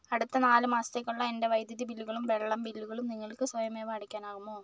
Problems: background sounds at intervals